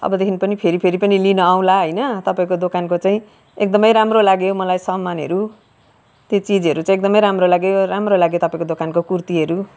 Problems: background sounds at intervals, background conversations at intervals